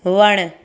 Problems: constant background noise